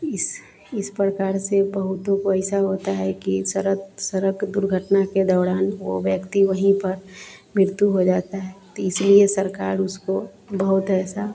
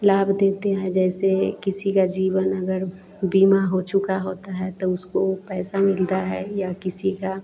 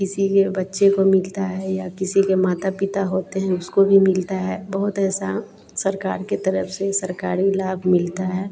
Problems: none marked